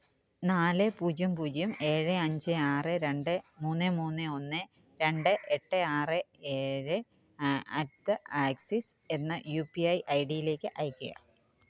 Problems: background sounds at intervals